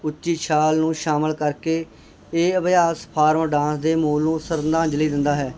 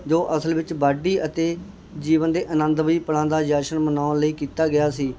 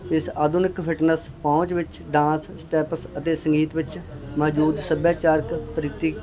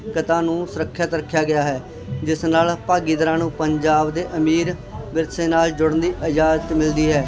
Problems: constant background noise